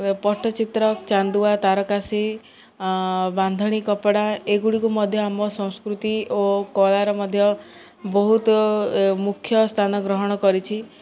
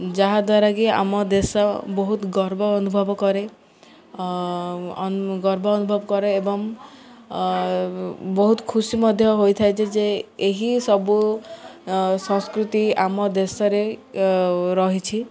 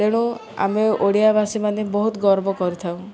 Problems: none marked